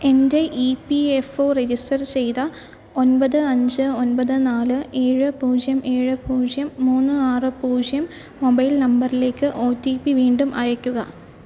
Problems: none marked